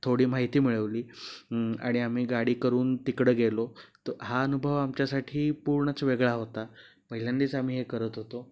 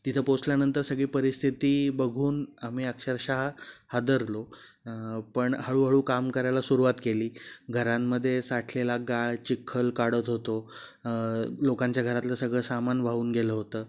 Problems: background sounds at intervals